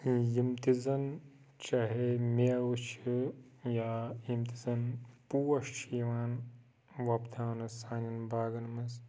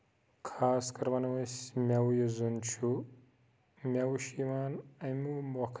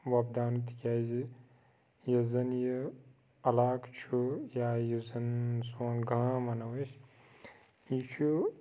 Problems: background sounds at intervals, low volume